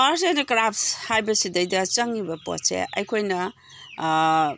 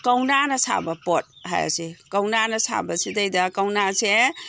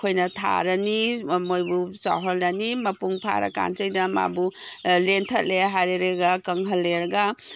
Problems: background sounds at intervals